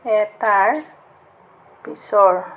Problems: background sounds at intervals